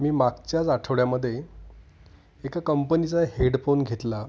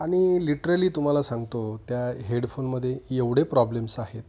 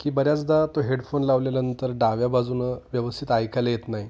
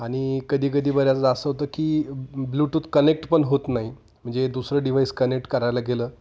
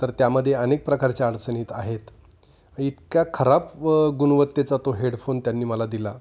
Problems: constant background noise, echo